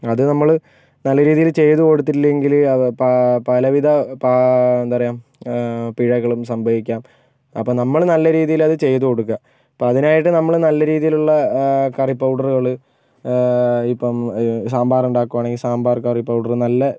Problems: none marked